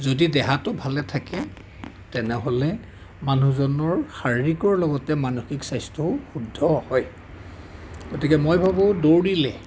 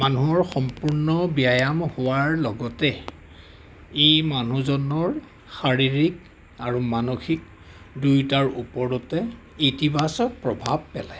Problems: background sounds at intervals, background conversations at intervals